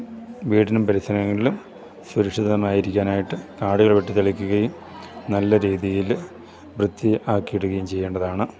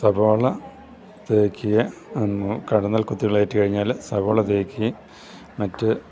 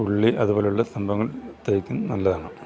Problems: none marked